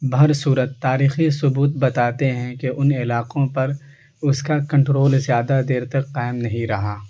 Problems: constant background noise